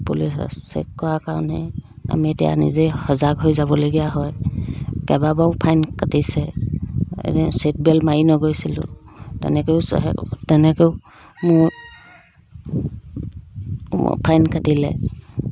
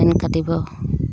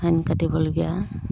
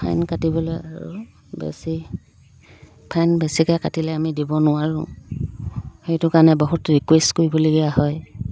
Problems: background sounds at intervals